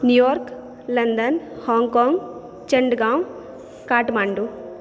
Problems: background conversations at intervals